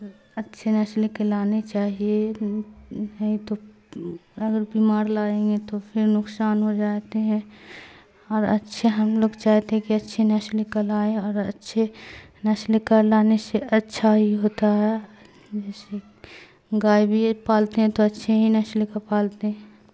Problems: constant background noise